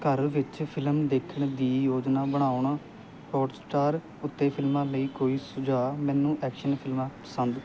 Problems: constant background noise